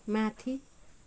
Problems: none marked